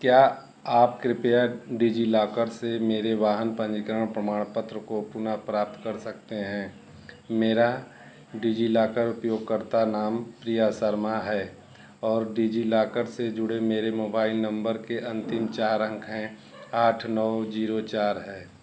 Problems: none marked